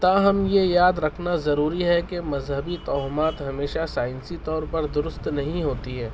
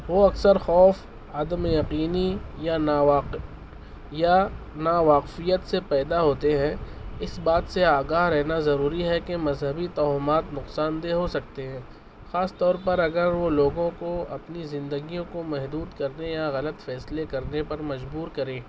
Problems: constant background noise